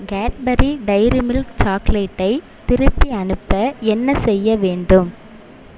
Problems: constant background noise